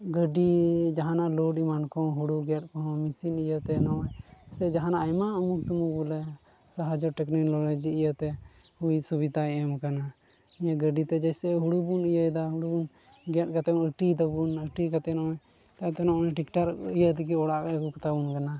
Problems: none marked